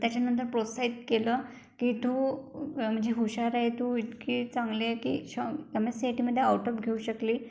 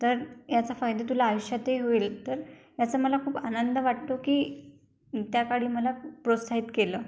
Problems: background sounds at intervals